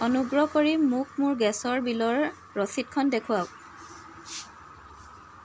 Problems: constant background noise